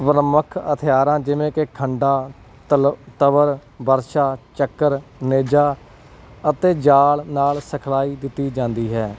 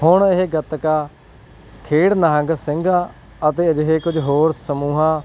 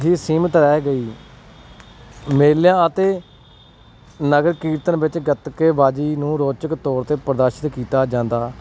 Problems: background sounds at intervals